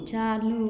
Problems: echo